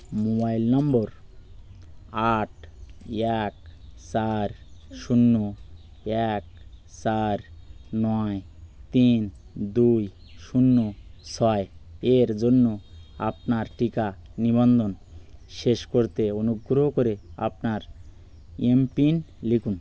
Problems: none marked